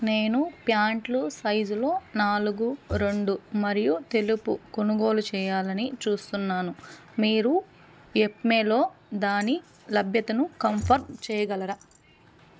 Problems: none marked